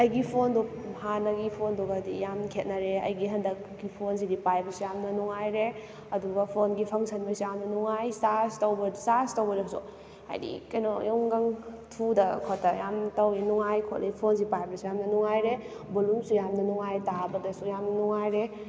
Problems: background sounds at intervals